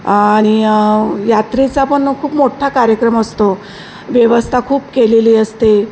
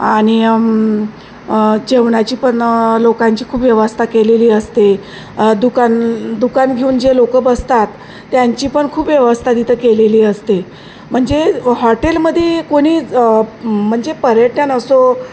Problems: constant background noise